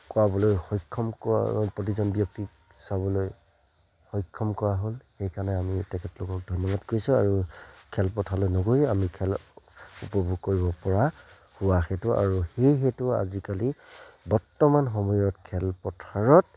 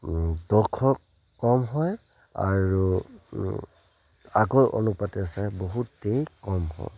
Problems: none marked